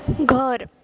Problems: background sounds at intervals